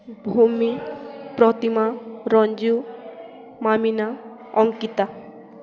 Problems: constant background noise, continuous background conversations